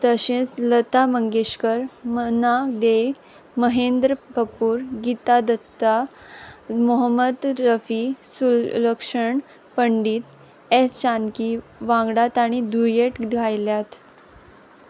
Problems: constant background noise